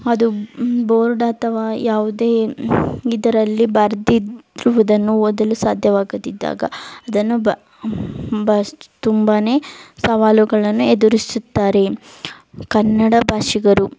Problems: none marked